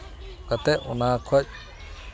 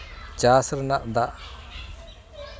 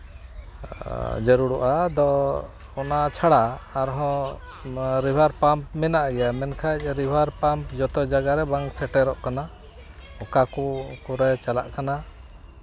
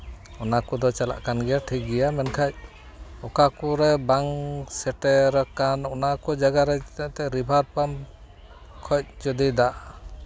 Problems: constant background noise, background conversations at intervals